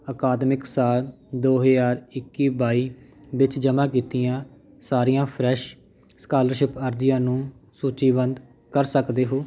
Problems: none marked